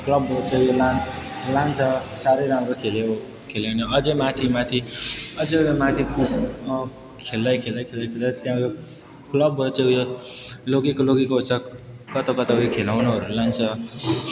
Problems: background sounds at intervals